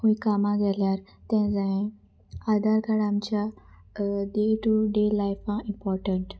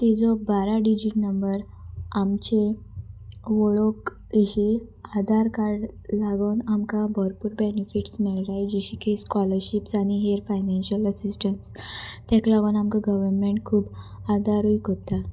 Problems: constant background noise